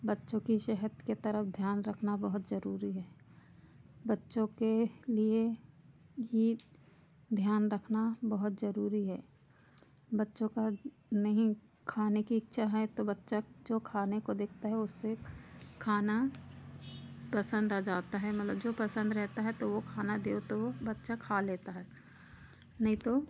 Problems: none marked